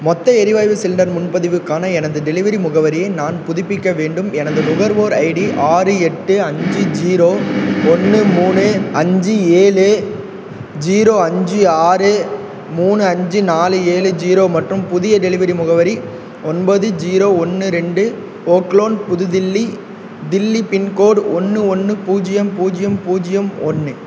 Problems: background sounds at intervals